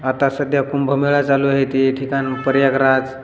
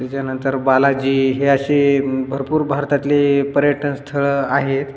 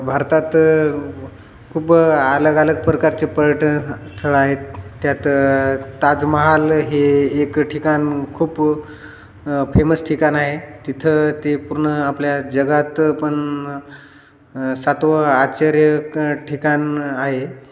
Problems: constant background noise, background conversations at intervals, echo